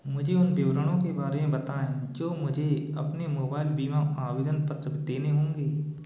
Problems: constant background noise